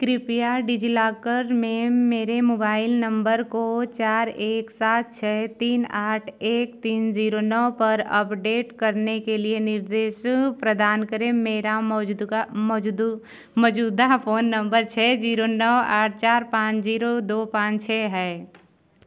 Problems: background sounds at intervals